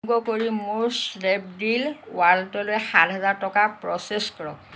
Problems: constant background noise